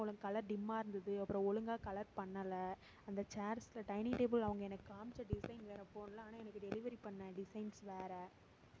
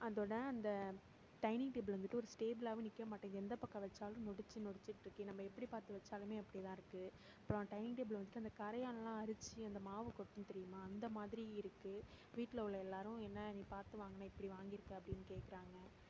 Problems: none marked